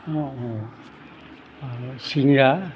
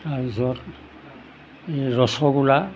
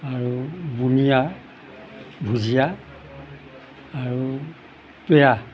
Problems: none marked